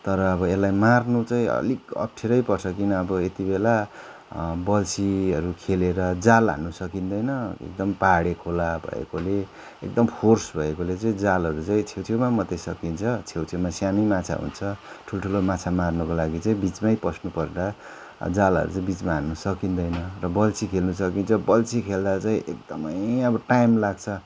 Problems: continuous background conversations